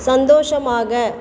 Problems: background sounds at intervals